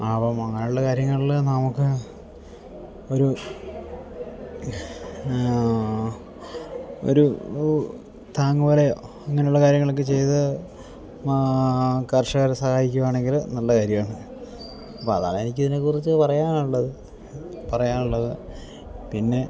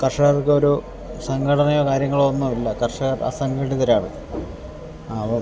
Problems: none marked